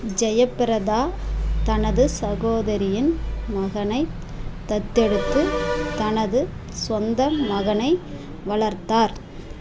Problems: constant background noise